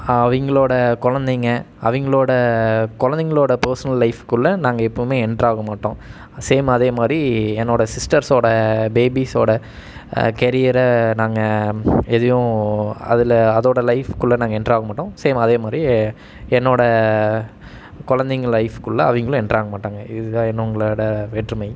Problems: none marked